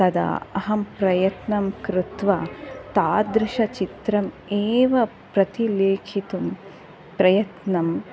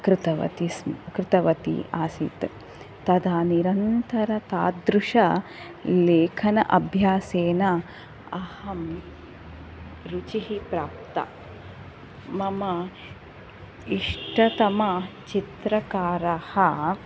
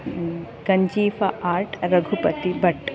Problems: none marked